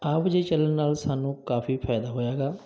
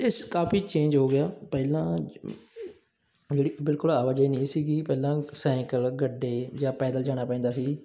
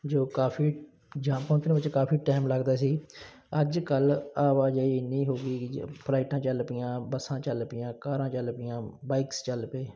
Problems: none marked